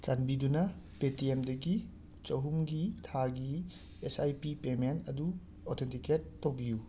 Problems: background sounds at intervals